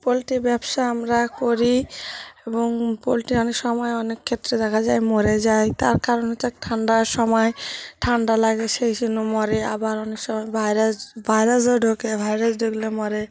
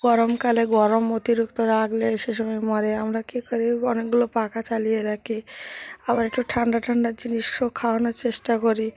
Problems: background sounds at intervals, background conversations at intervals